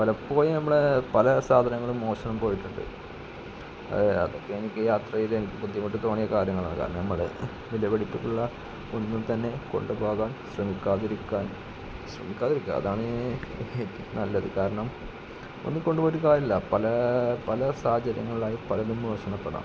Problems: constant background noise, low volume